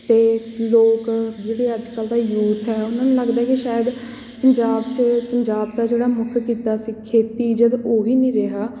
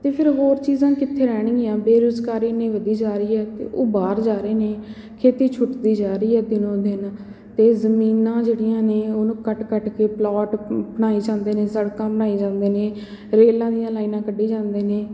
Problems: background sounds at intervals